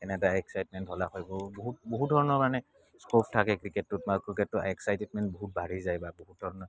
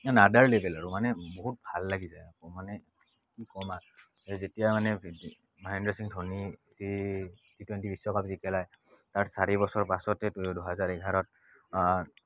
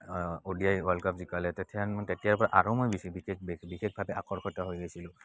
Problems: background sounds at intervals, background conversations at intervals